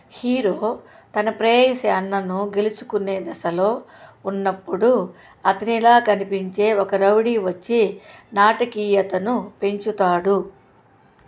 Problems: constant background noise